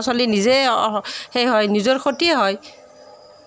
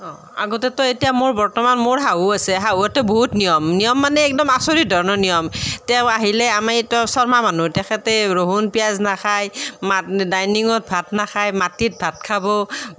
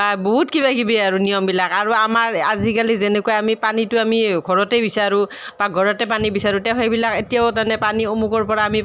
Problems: background sounds at intervals